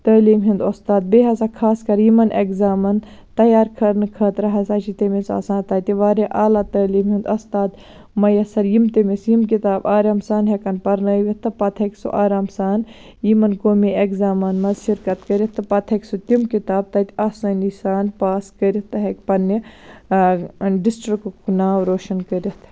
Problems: none marked